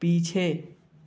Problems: background sounds at intervals